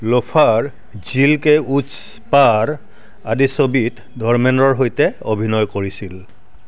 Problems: none marked